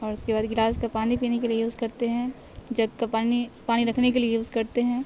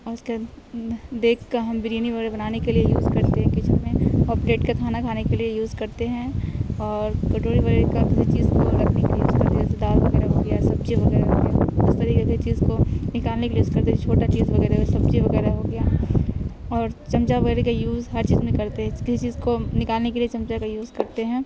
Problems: constant background noise, background conversations at intervals